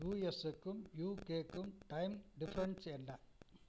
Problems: background sounds at intervals